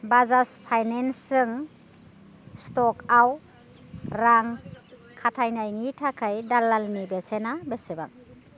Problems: constant background noise